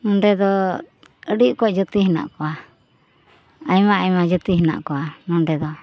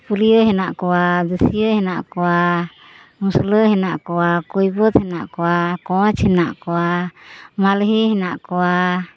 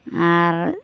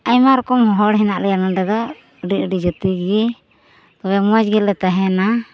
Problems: constant background noise, background conversations at intervals